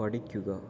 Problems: low volume